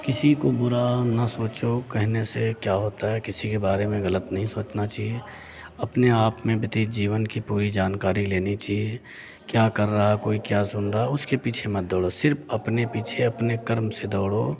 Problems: none marked